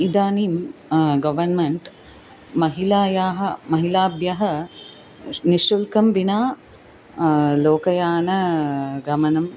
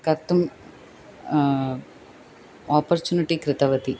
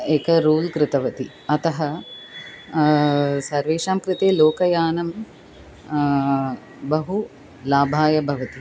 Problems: constant background noise